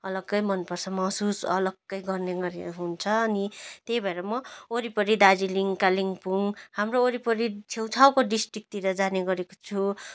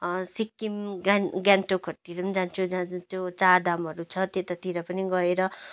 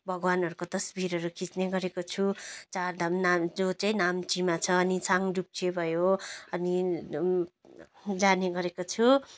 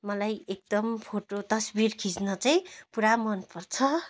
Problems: none marked